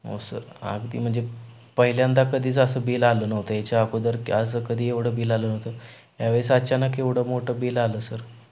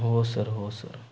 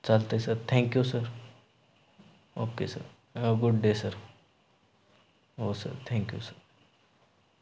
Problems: none marked